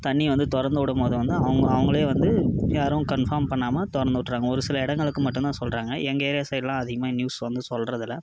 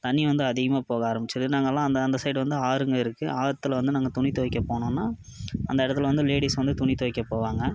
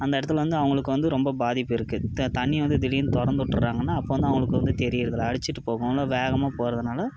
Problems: background sounds at intervals